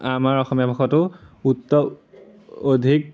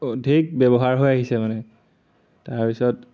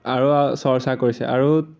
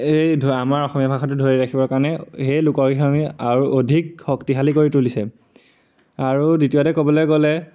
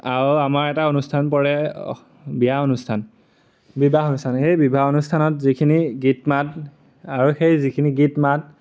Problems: none marked